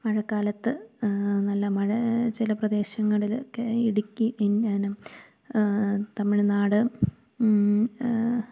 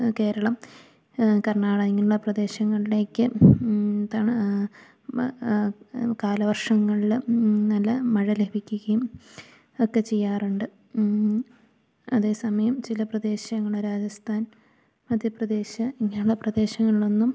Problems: none marked